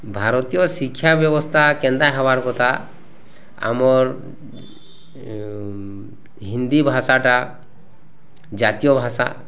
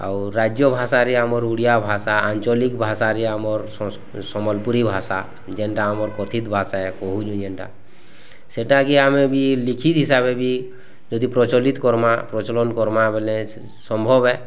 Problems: constant background noise